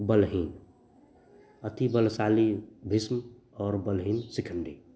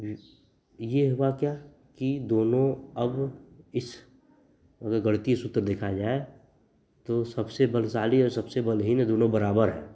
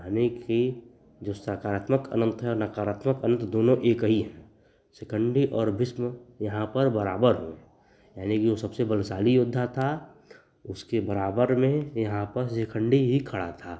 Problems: none marked